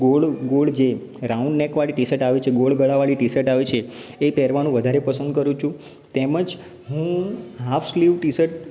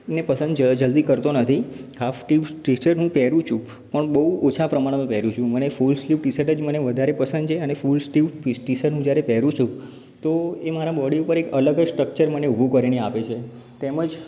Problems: background sounds at intervals